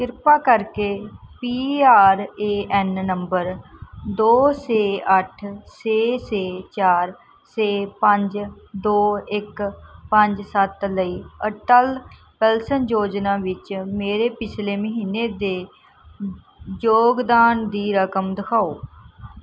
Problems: background sounds at intervals